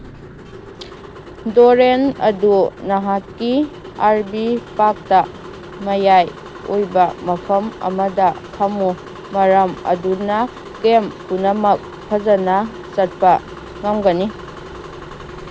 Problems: background sounds at intervals